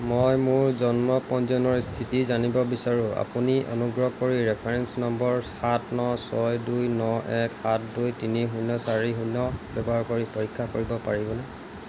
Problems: constant background noise